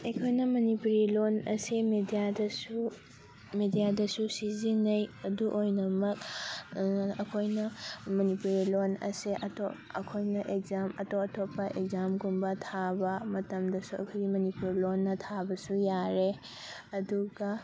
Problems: constant background noise, background conversations at intervals